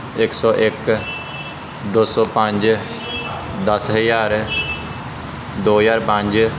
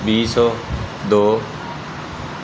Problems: constant background noise